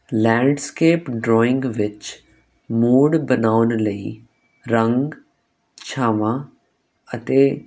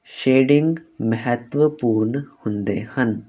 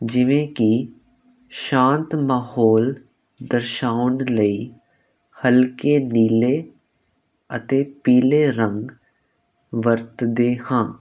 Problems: constant background noise